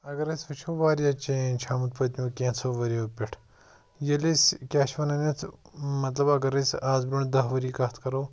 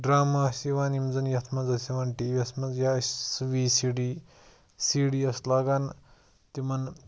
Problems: none marked